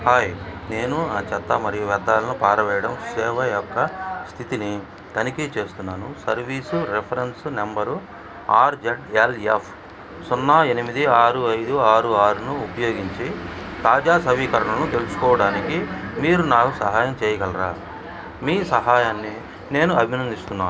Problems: background conversations at intervals